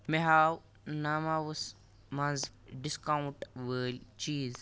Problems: none marked